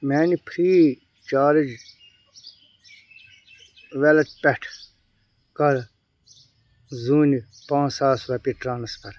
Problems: background sounds at intervals